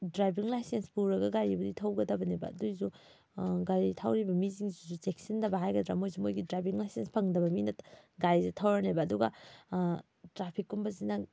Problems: none marked